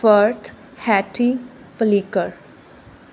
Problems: constant background noise